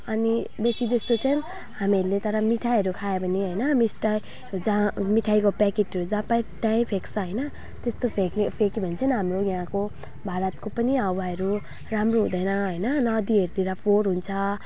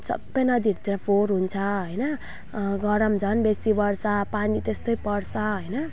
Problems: background sounds at intervals